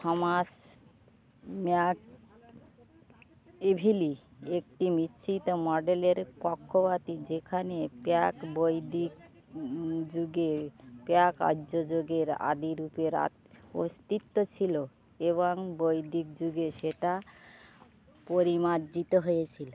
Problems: constant background noise, background conversations at intervals